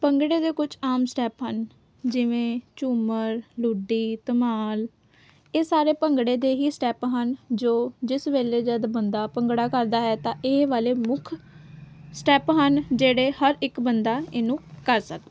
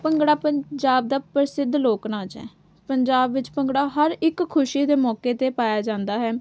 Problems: none marked